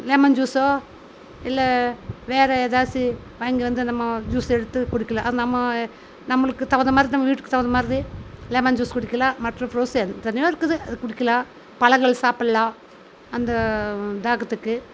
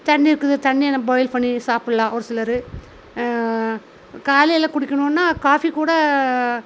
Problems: none marked